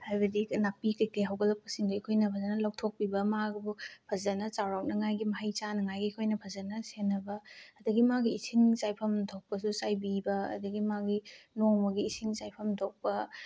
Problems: none marked